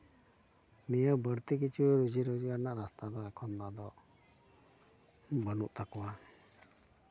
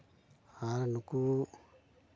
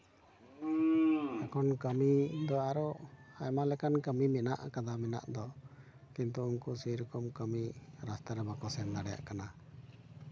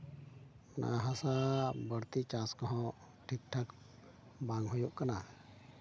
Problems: constant background noise, continuous background conversations